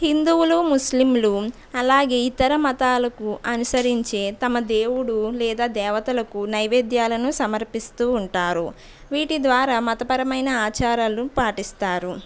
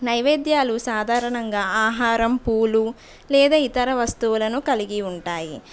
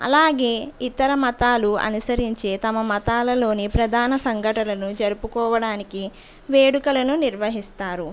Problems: background sounds at intervals